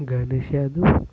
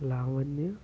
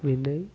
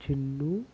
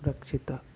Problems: constant background noise, low volume